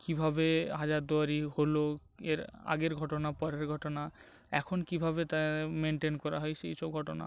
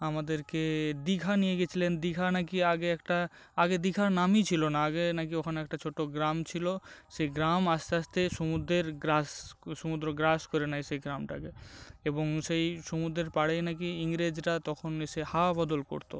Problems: constant background noise